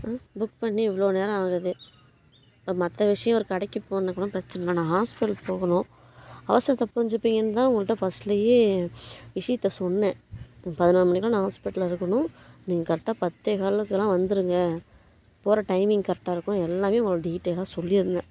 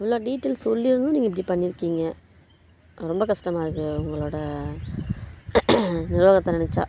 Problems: constant background noise